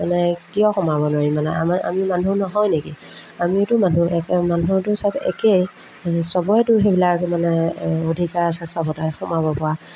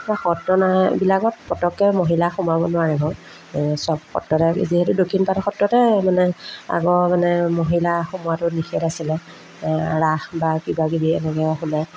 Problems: background sounds at intervals